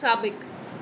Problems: constant background noise, echo